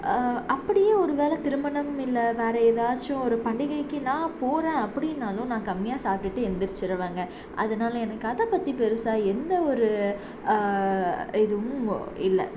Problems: constant background noise